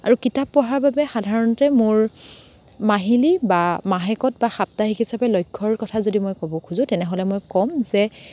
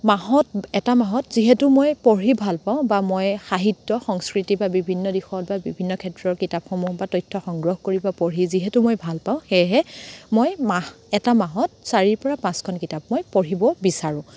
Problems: background sounds at intervals